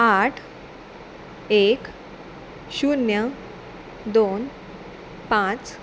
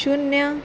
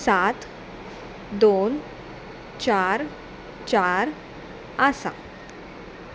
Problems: constant background noise